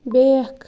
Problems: background sounds at intervals